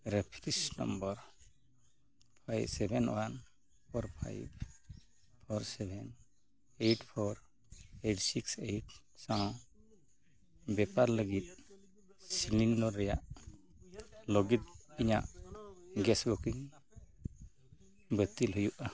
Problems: background conversations at intervals